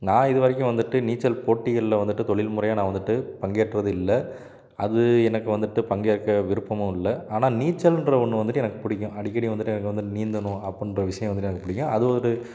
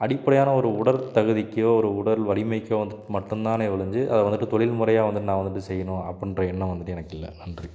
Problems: none marked